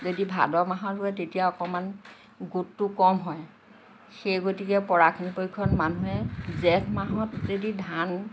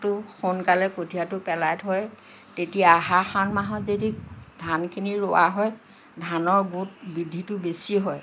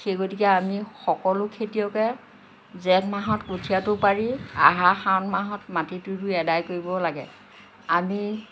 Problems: constant background noise